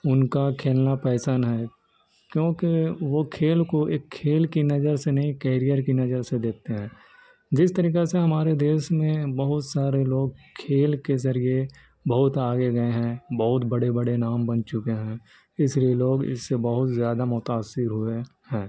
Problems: constant background noise